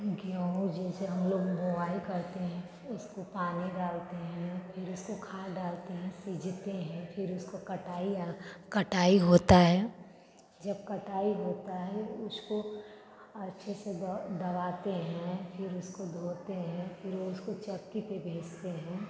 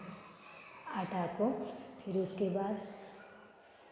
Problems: background sounds at intervals, continuous background conversations